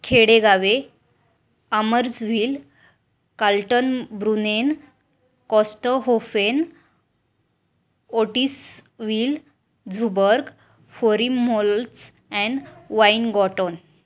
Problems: none marked